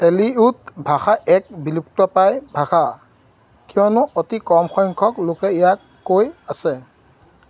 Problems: constant background noise